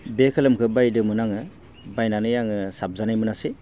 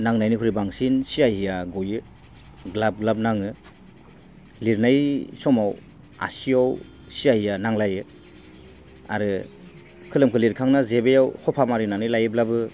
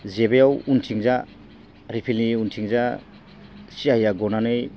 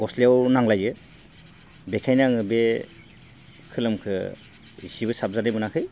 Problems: none marked